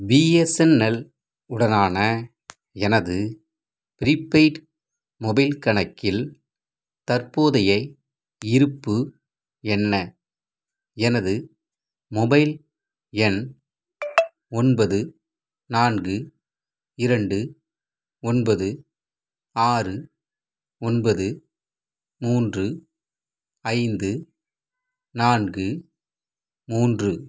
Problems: background sounds at intervals